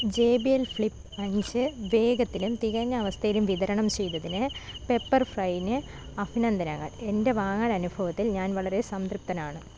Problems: none marked